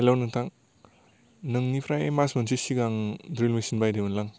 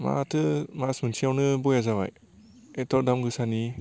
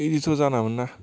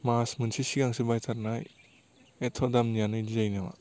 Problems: low volume